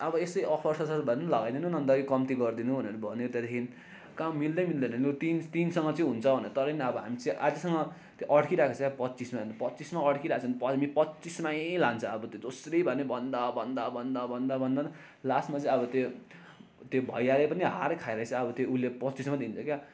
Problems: constant background noise